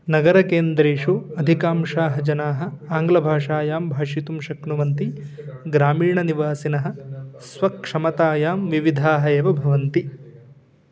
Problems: continuous background conversations